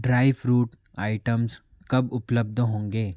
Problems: constant background noise